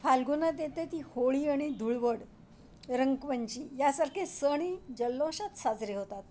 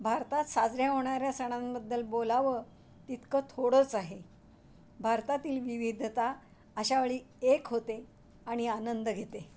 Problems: none marked